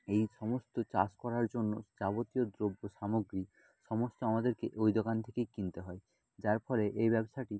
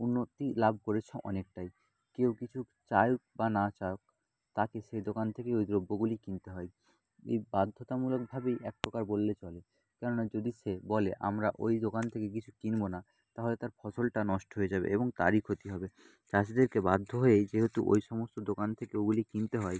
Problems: none marked